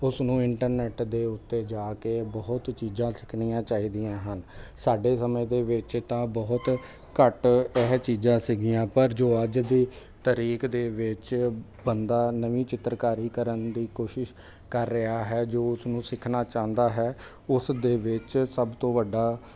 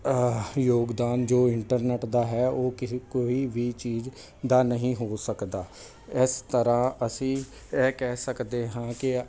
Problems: constant background noise